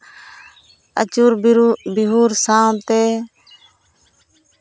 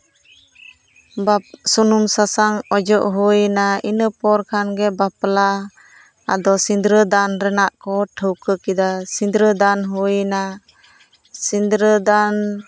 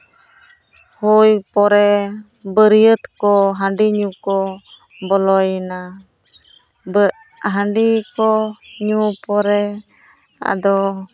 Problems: background sounds at intervals, background conversations at intervals